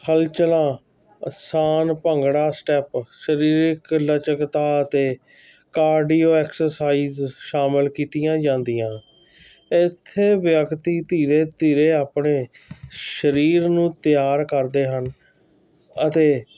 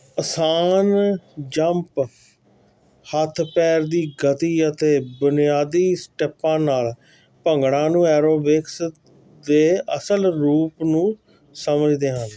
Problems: none marked